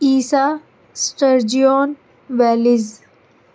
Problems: constant background noise